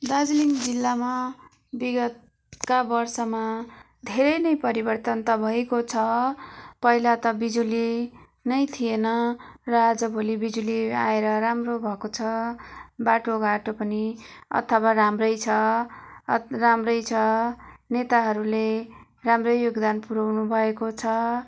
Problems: none marked